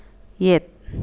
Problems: none marked